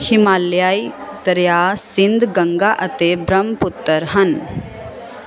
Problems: constant background noise